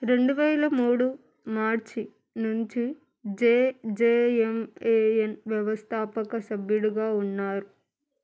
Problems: none marked